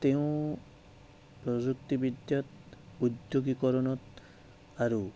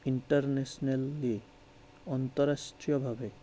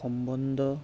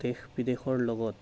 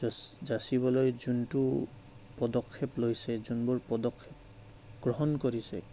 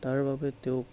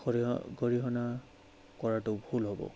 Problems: background sounds at intervals, low volume